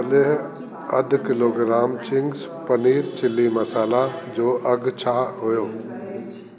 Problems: constant background noise, echo